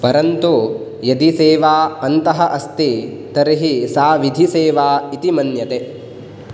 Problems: background sounds at intervals